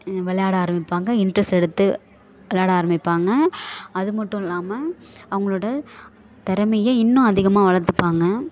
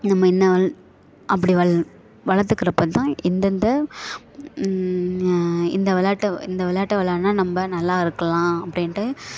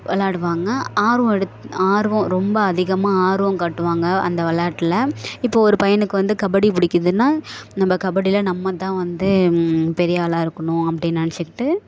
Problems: background sounds at intervals